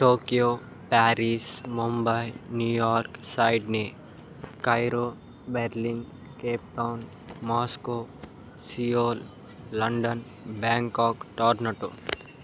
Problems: none marked